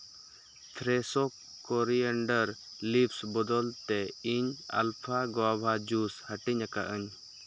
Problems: background sounds at intervals